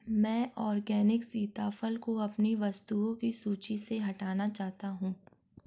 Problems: background sounds at intervals